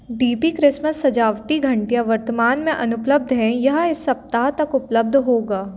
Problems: background sounds at intervals